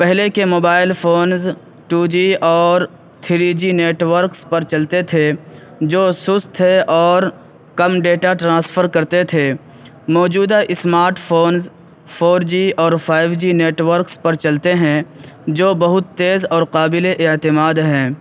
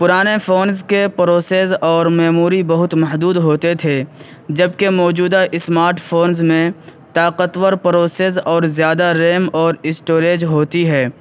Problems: background sounds at intervals, background conversations at intervals